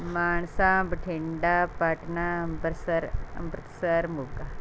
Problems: none marked